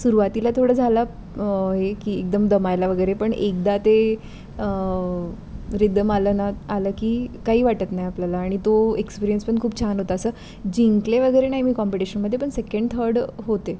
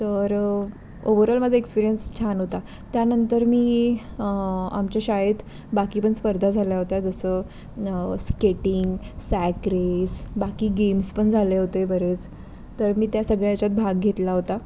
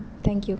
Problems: constant background noise